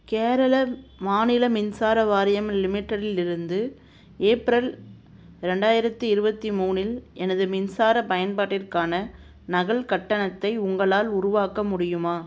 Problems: constant background noise